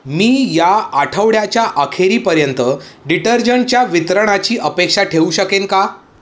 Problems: background sounds at intervals, echo